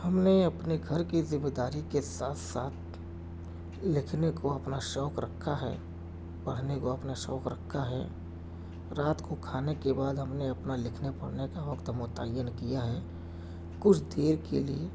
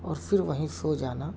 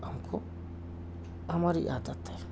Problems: background sounds at intervals